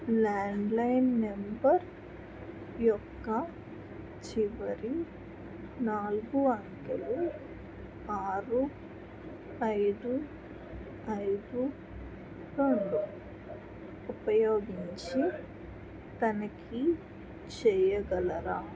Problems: constant background noise, background conversations at intervals